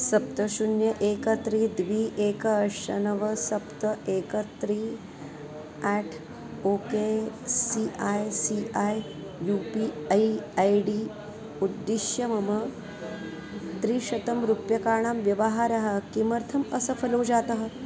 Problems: constant background noise, background conversations at intervals